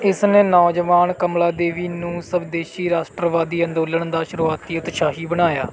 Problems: none marked